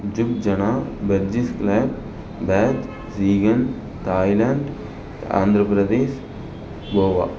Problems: background sounds at intervals